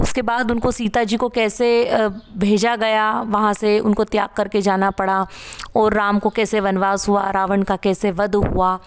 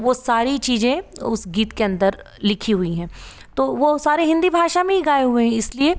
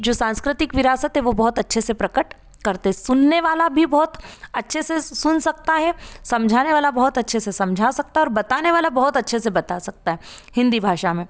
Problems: none marked